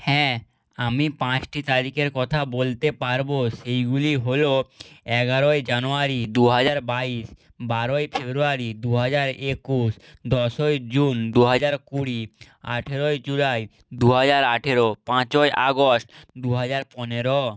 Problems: none marked